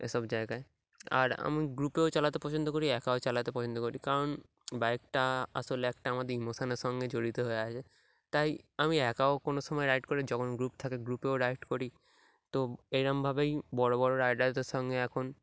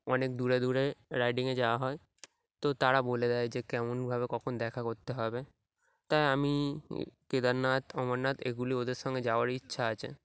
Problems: background sounds at intervals